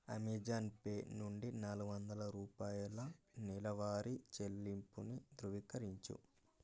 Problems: low volume